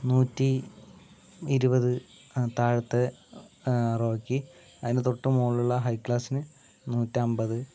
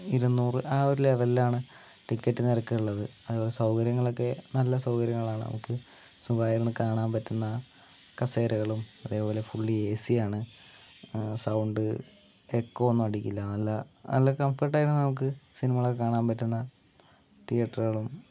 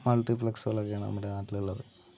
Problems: low volume